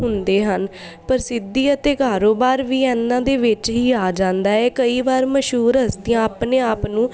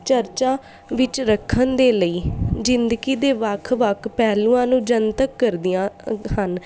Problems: none marked